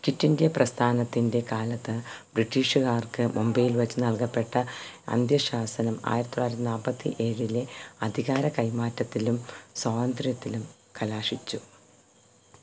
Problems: constant background noise